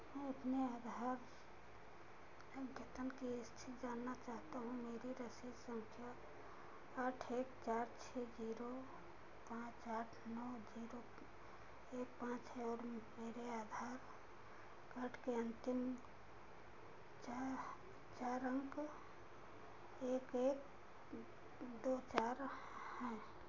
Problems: constant background noise, low volume